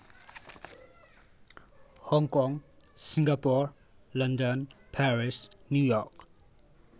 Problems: none marked